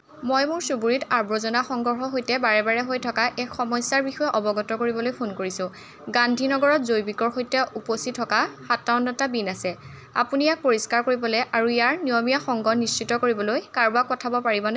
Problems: none marked